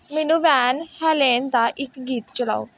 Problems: background sounds at intervals